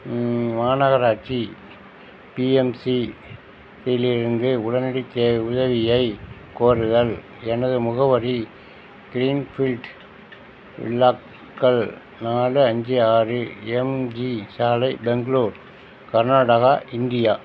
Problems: constant background noise